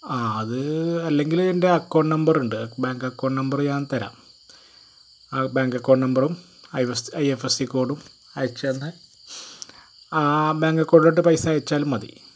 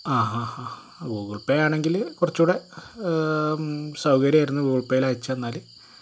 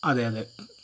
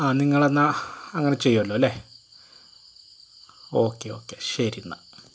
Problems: constant background noise